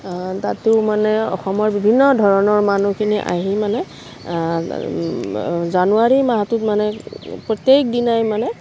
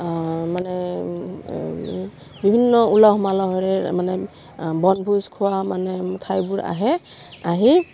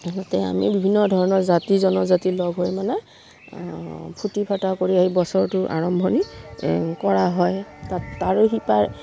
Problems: none marked